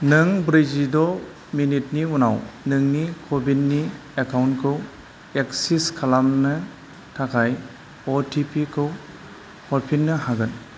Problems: low volume